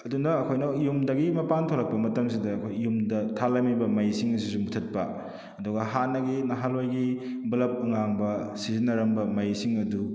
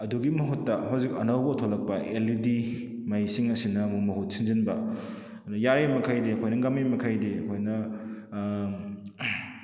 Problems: none marked